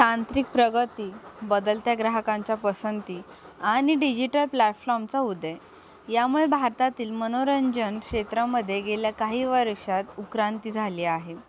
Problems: none marked